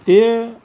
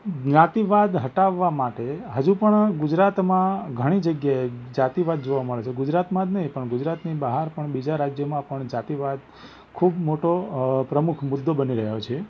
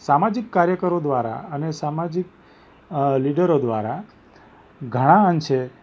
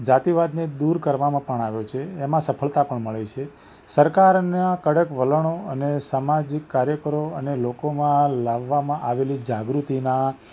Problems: background sounds at intervals